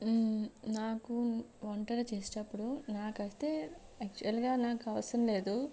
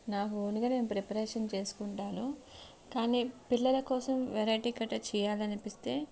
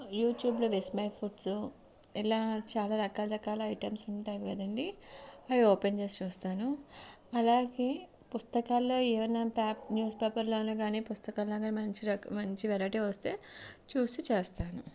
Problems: low volume